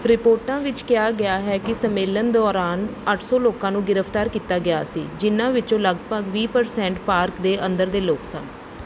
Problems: background sounds at intervals